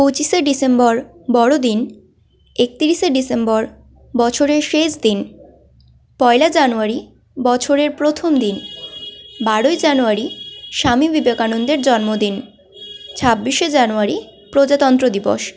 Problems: continuous background conversations